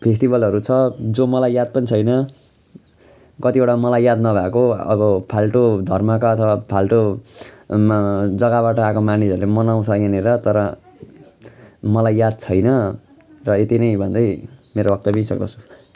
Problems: continuous background conversations